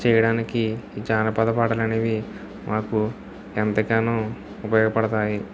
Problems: none marked